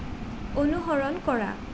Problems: constant background noise